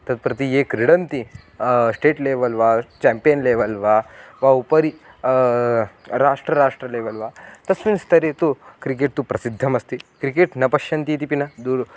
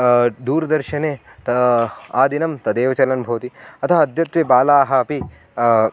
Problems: none marked